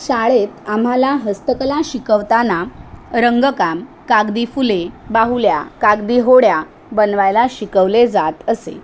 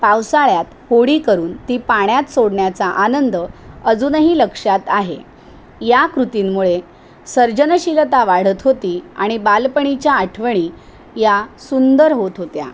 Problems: constant background noise